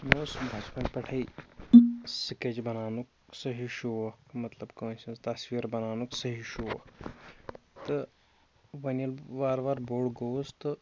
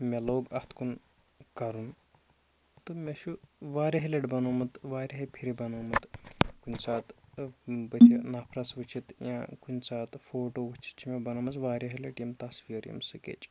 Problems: constant background noise